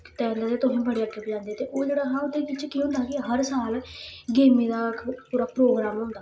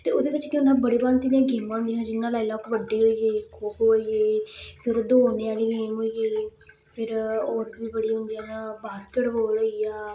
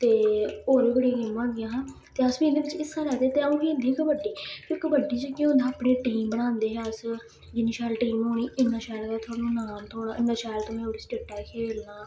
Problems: constant background noise